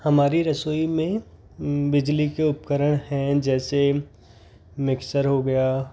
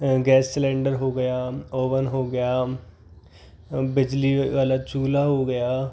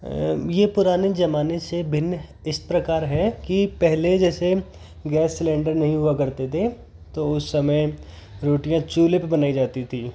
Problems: background sounds at intervals